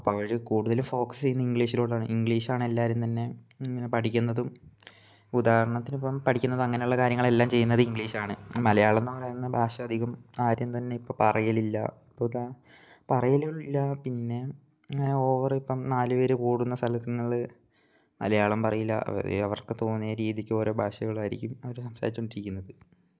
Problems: none marked